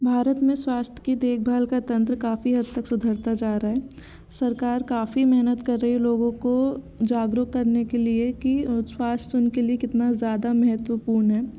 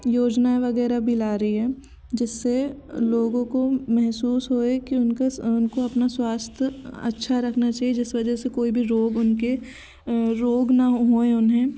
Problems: constant background noise, background conversations at intervals